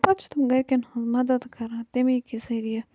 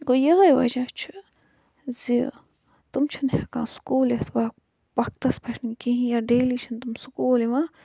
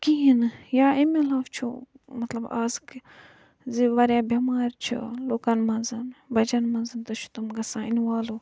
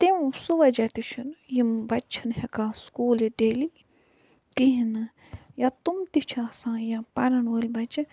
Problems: low volume